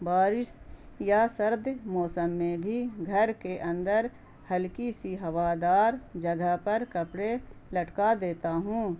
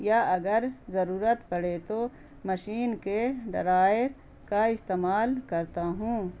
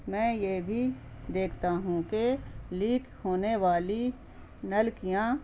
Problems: constant background noise